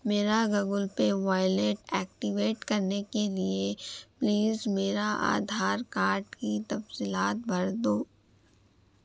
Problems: constant background noise, low volume